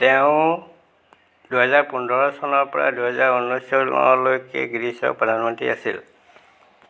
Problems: constant background noise